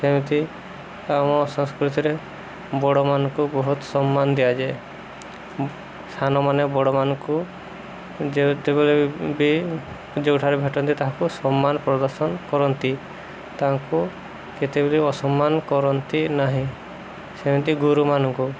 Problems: none marked